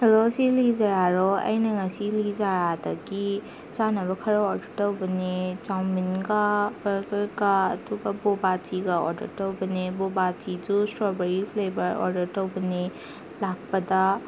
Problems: constant background noise